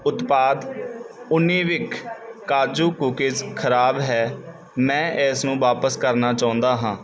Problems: none marked